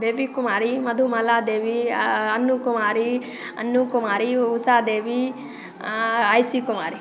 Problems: constant background noise